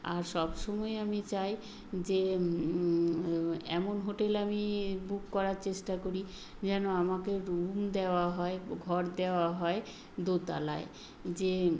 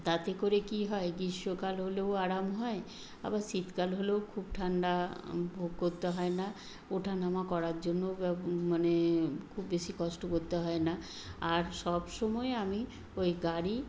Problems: background sounds at intervals